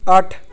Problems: none marked